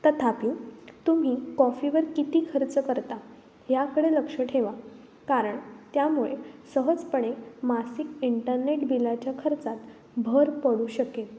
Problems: constant background noise